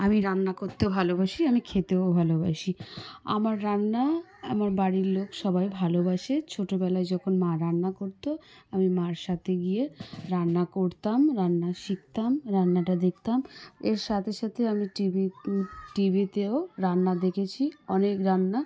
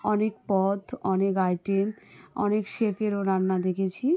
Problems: background sounds at intervals, background conversations at intervals